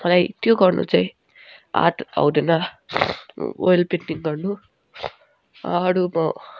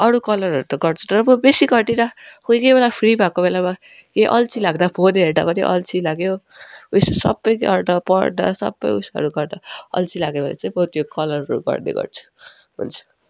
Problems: constant background noise